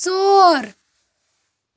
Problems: background sounds at intervals